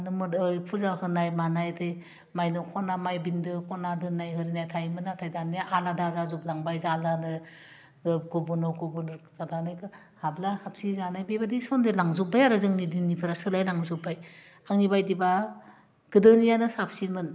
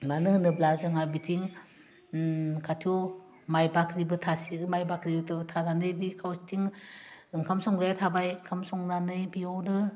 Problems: constant background noise